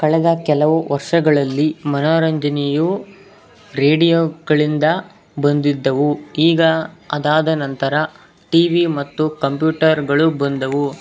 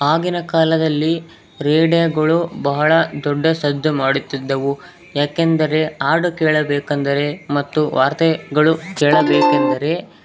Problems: background sounds at intervals